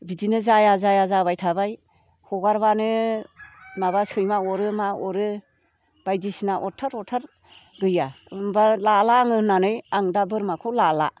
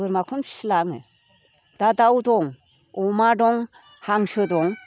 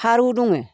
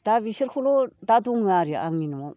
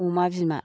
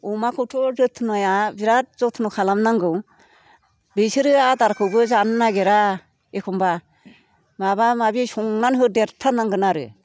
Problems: none marked